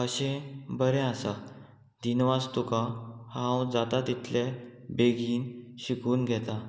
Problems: constant background noise